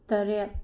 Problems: low volume